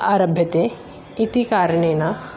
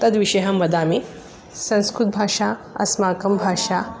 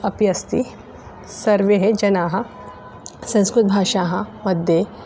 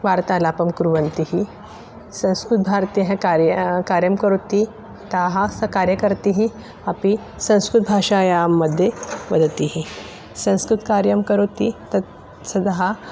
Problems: background sounds at intervals